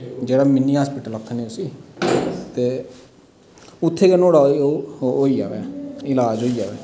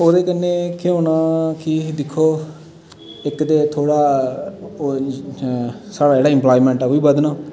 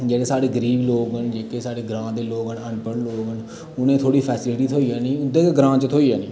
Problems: constant background noise, echo